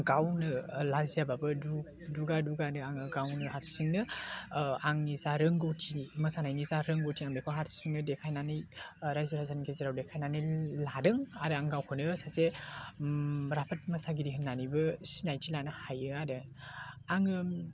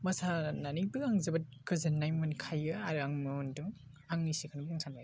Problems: none marked